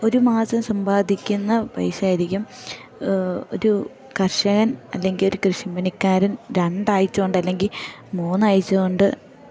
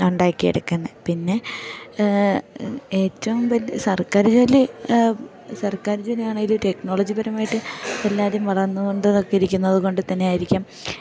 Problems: background sounds at intervals